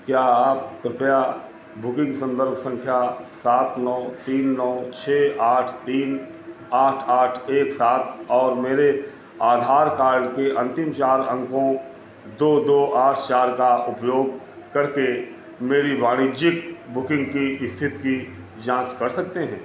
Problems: constant background noise